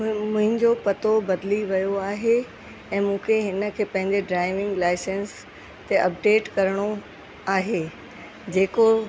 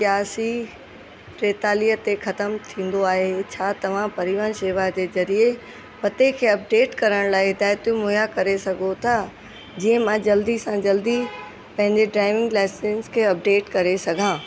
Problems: constant background noise